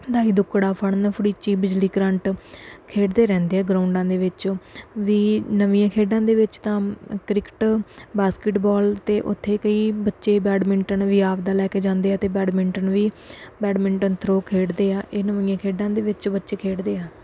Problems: background sounds at intervals